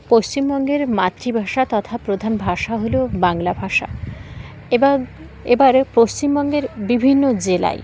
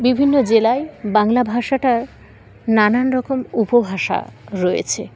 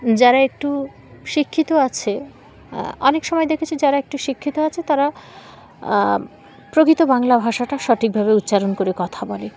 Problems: constant background noise, background conversations at intervals